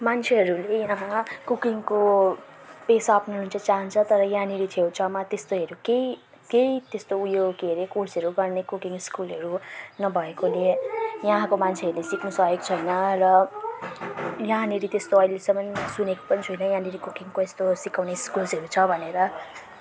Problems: constant background noise